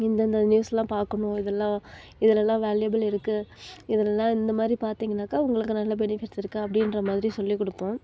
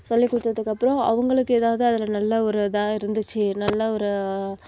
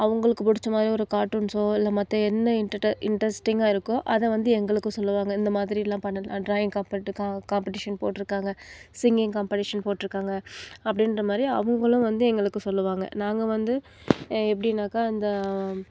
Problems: background conversations at intervals